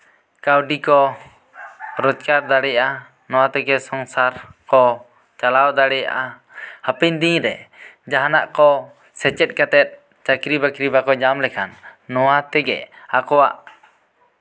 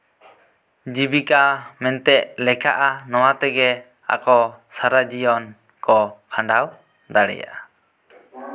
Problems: background sounds at intervals